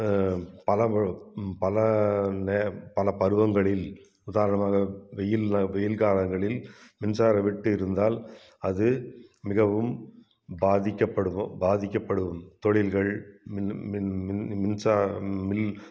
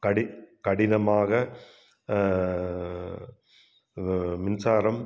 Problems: none marked